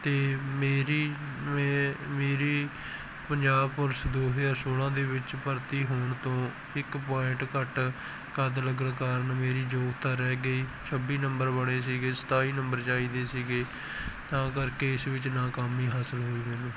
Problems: background sounds at intervals